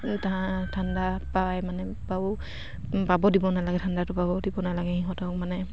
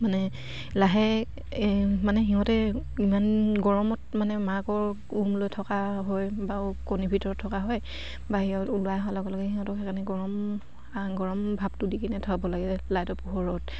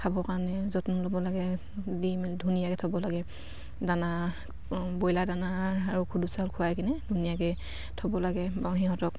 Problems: none marked